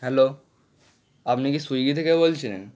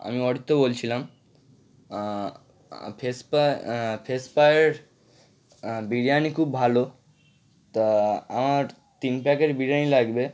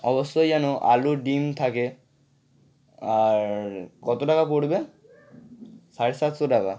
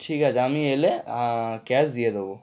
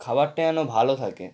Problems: background sounds at intervals